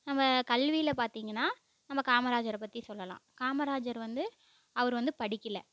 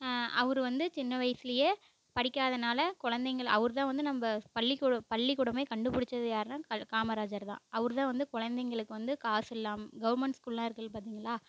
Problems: background sounds at intervals